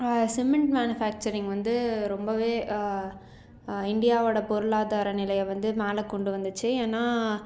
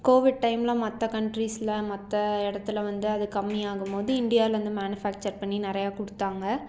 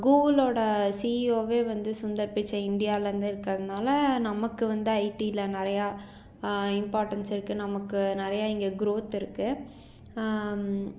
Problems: none marked